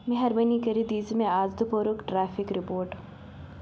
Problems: constant background noise